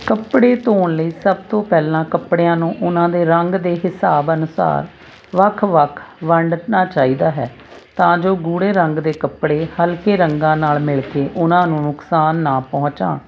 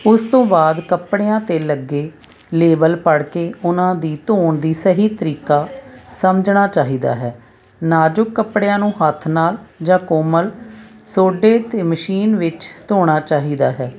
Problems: constant background noise